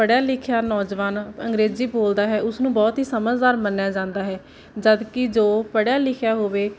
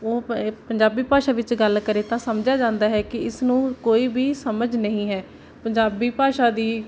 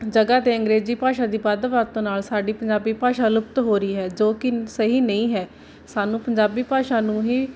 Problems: none marked